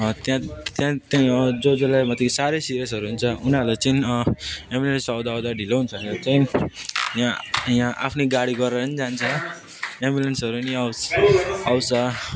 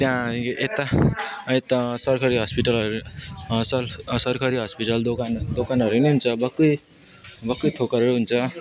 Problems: constant background noise, continuous background conversations